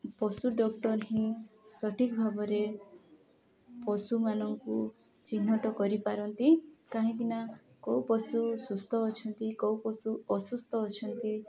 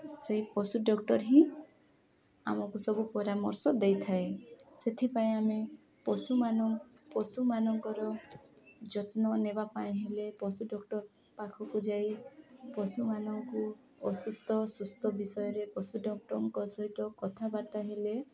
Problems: continuous background conversations